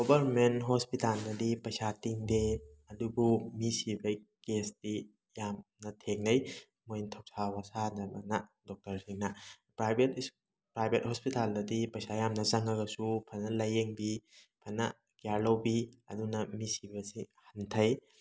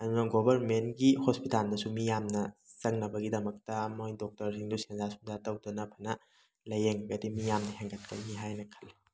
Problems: background sounds at intervals